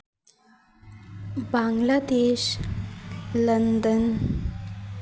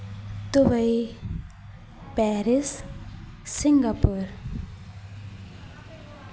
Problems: constant background noise